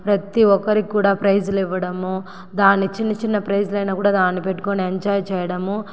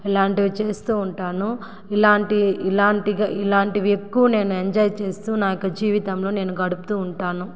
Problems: echo